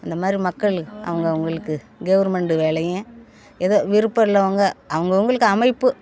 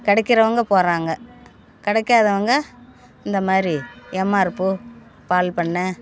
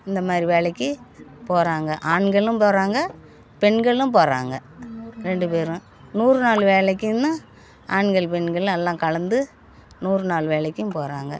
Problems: none marked